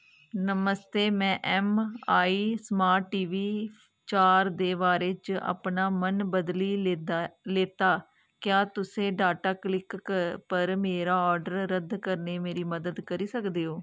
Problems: none marked